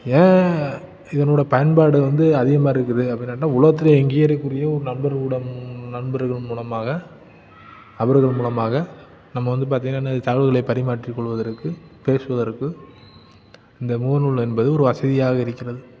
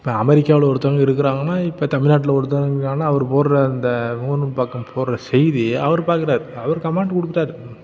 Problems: none marked